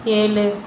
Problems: constant background noise